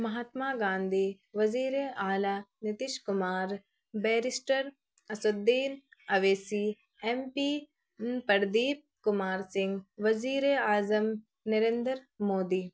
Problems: none marked